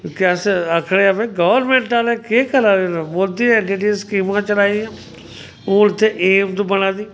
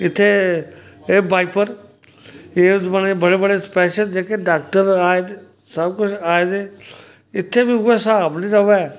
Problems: background sounds at intervals